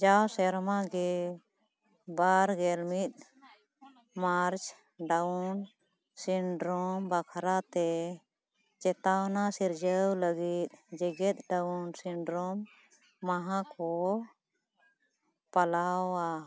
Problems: none marked